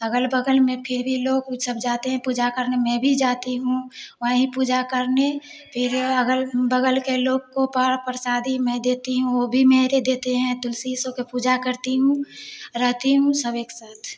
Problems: none marked